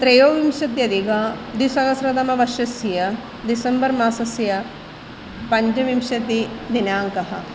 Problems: background sounds at intervals